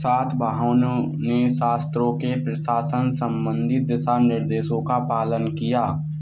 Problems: constant background noise